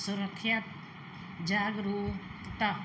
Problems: none marked